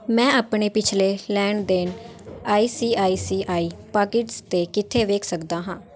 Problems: background sounds at intervals